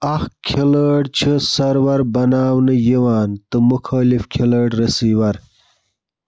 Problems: constant background noise